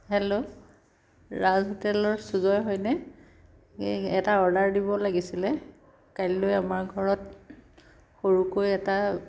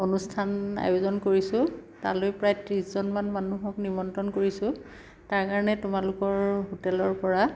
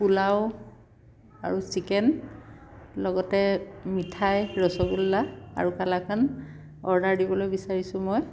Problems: background sounds at intervals